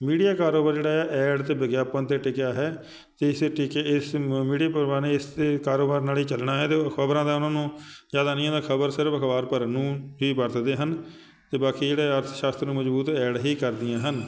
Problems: none marked